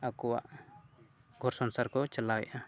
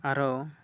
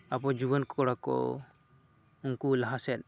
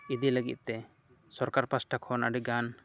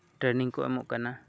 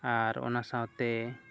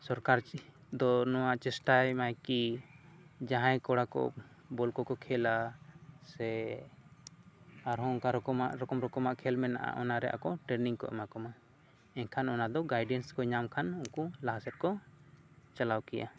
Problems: background conversations at intervals